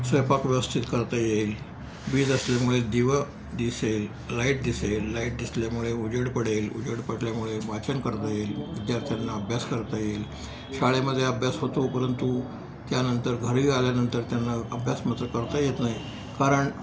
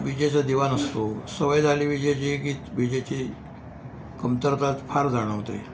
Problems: background sounds at intervals